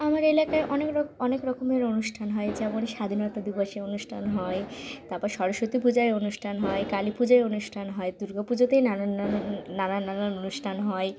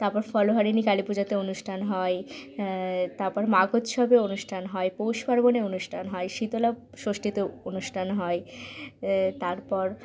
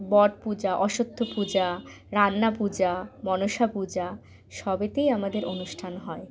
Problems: background conversations at intervals